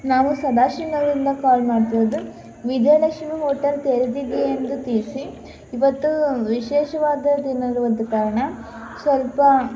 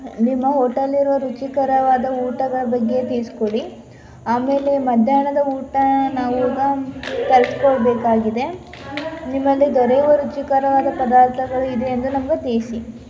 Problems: constant background noise